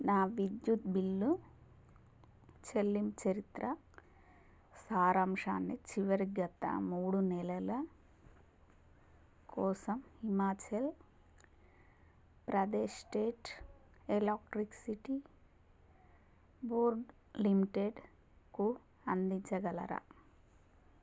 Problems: constant background noise, low volume